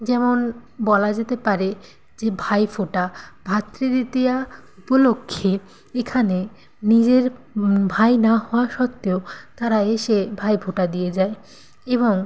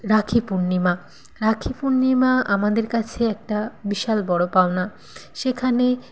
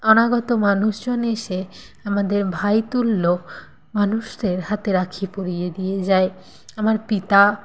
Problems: constant background noise